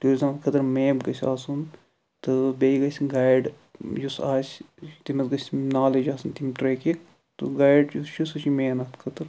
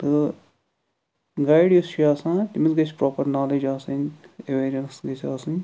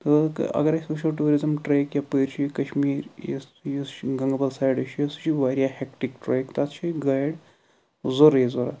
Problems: none marked